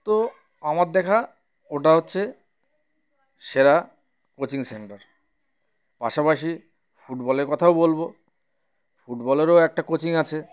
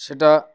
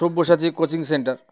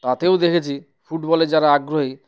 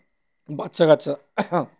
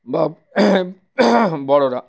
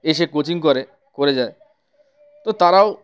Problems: none marked